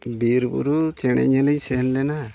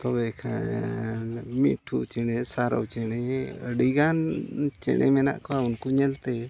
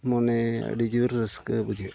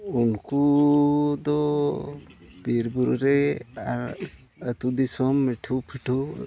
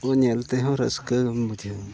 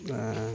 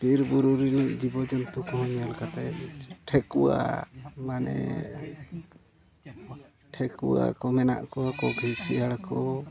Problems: constant background noise